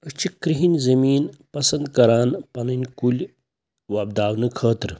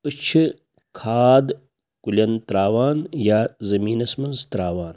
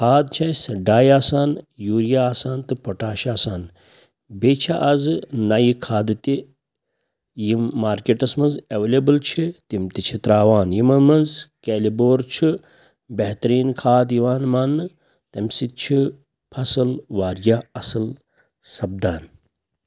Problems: none marked